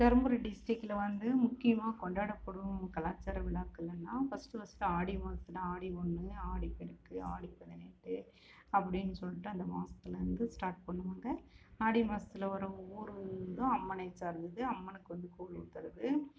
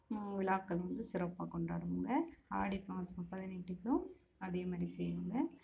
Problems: constant background noise, low volume